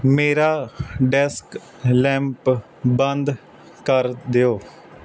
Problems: constant background noise